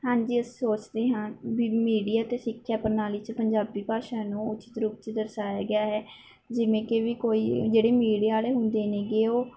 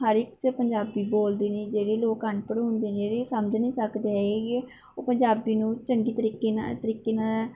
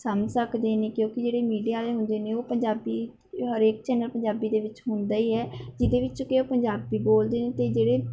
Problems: background conversations at intervals